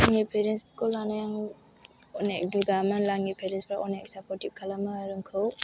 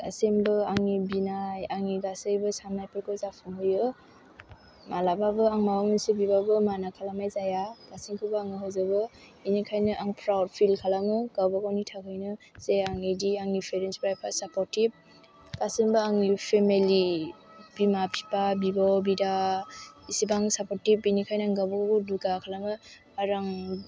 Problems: background sounds at intervals